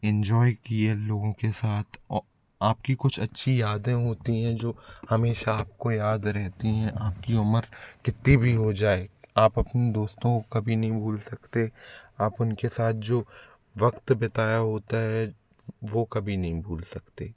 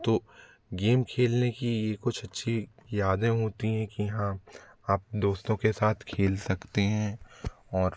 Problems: background sounds at intervals